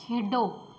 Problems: none marked